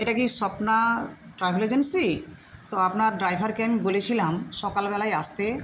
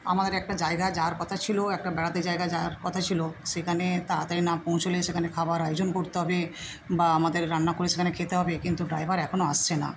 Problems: none marked